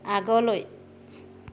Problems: constant background noise